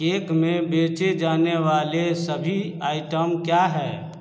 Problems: none marked